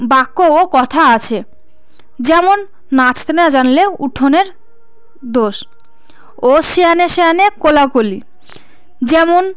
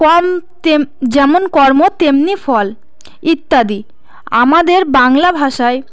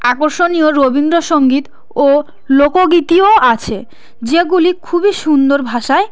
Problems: constant background noise, background conversations at intervals